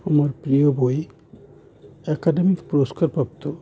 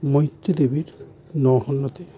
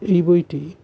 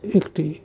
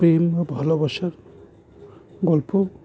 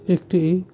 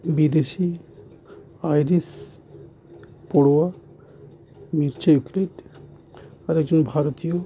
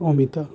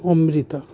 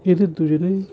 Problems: constant background noise